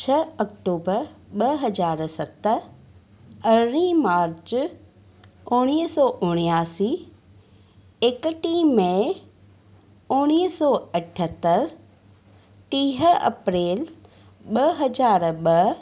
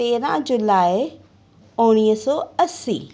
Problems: none marked